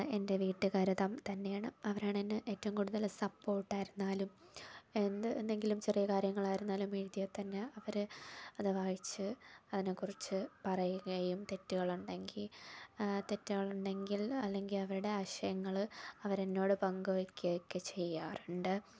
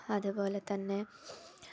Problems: low volume